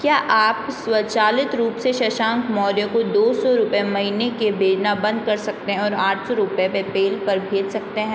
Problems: constant background noise